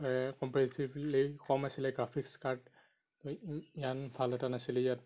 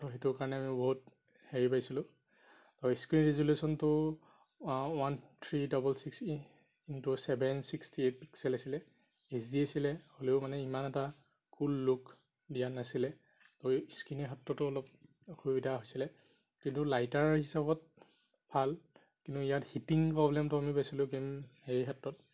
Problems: constant background noise